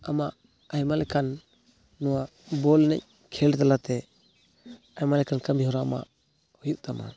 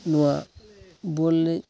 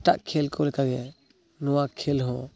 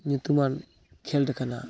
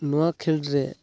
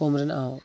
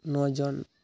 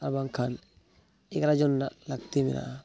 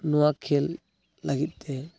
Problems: none marked